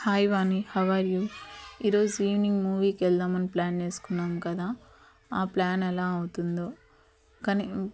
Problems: constant background noise, continuous background conversations